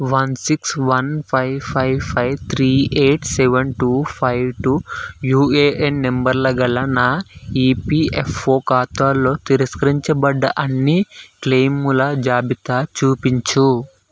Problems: none marked